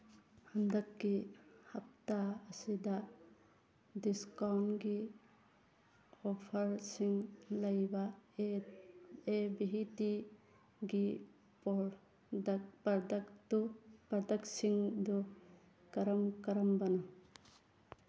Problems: background sounds at intervals, background conversations at intervals